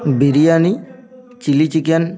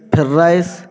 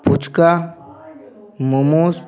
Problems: none marked